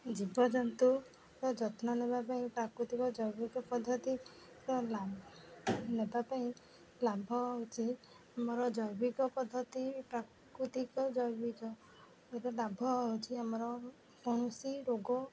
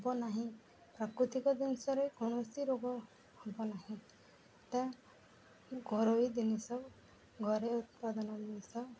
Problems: background sounds at intervals, background conversations at intervals